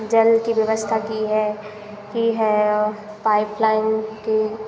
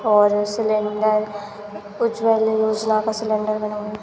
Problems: constant background noise